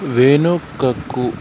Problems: constant background noise